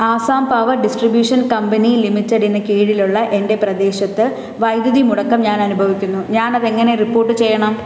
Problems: none marked